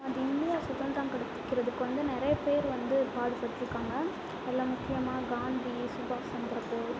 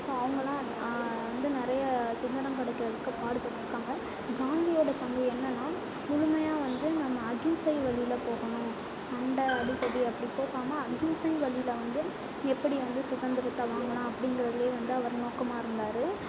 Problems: background sounds at intervals, low volume